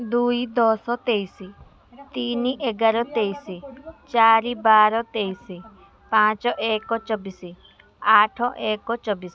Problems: constant background noise